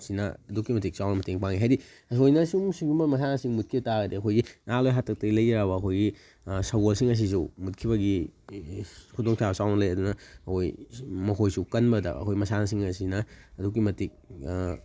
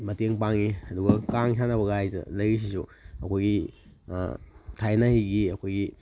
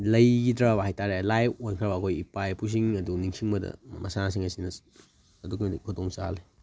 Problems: none marked